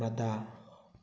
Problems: none marked